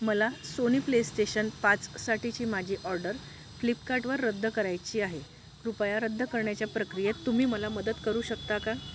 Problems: constant background noise